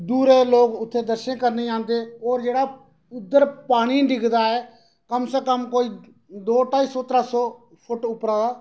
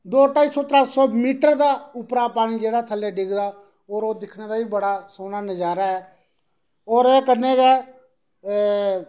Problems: none marked